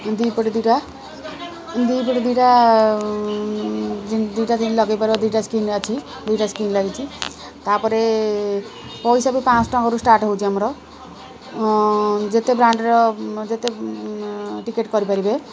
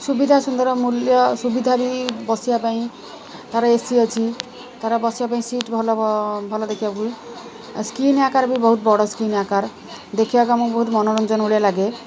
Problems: constant background noise